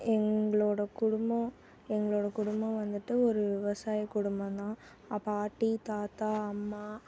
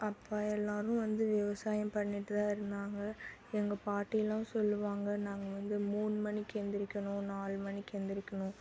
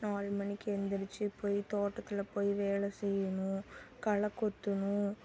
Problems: background sounds at intervals